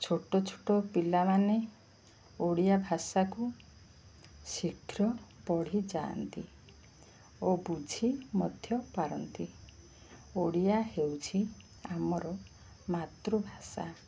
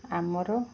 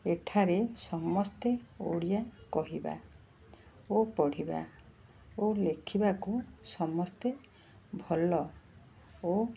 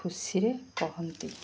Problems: none marked